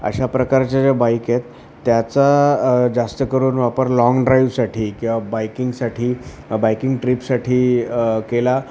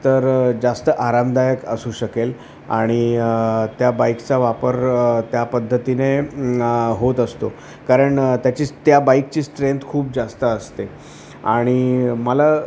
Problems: constant background noise